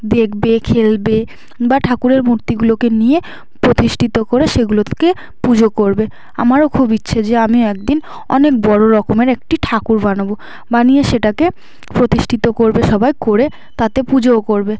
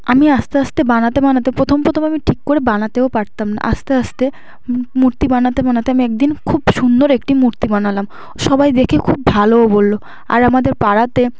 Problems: none marked